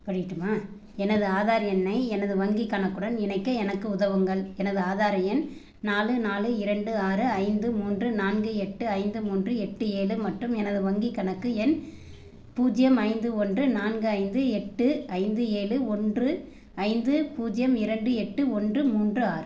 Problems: background sounds at intervals